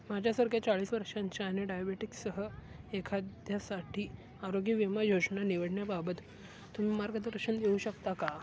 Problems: constant background noise, low volume